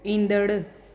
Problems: constant background noise, echo